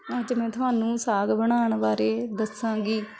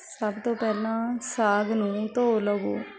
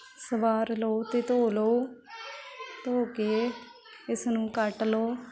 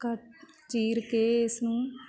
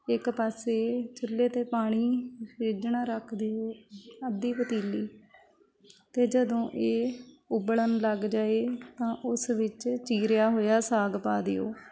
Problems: constant background noise, continuous background conversations